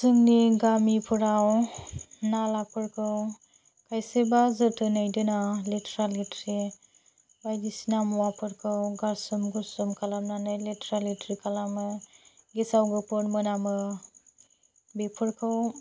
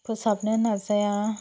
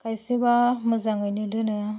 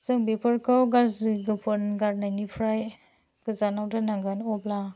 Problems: low volume